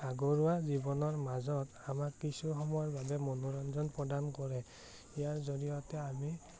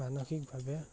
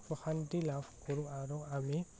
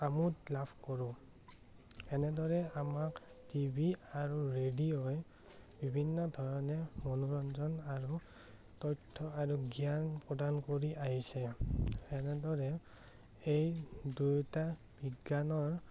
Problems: none marked